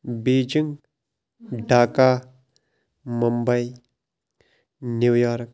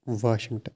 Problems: none marked